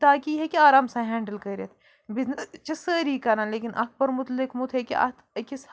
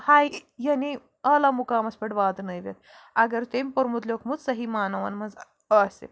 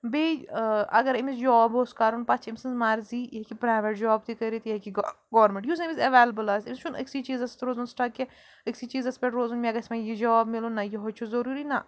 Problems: background sounds at intervals